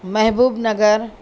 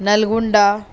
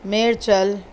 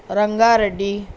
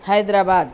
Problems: none marked